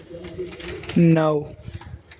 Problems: constant background noise